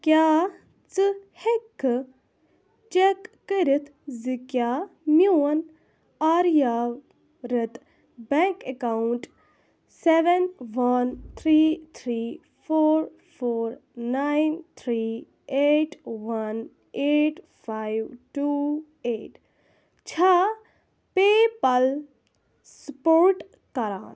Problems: none marked